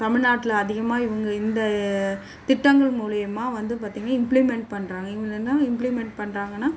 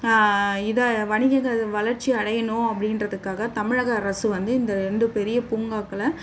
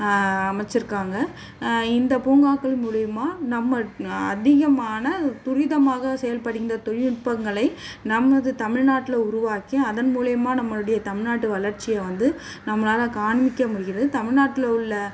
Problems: constant background noise